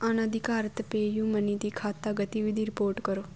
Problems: constant background noise